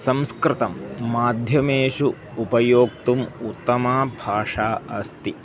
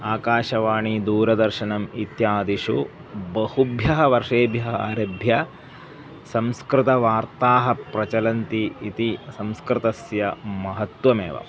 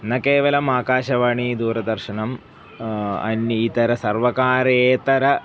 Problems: background sounds at intervals